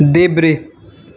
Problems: constant background noise